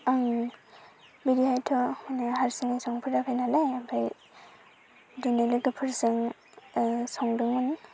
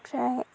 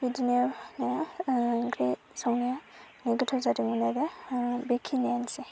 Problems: constant background noise